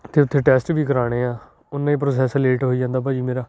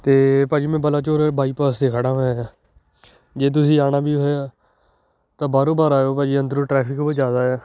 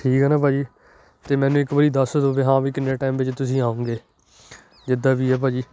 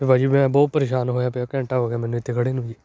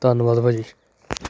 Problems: none marked